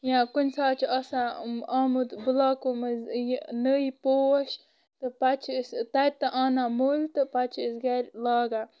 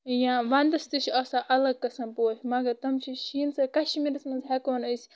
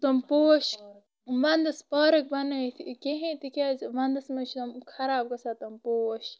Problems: constant background noise